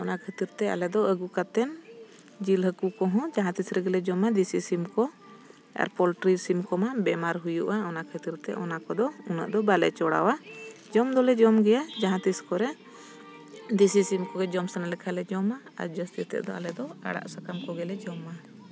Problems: constant background noise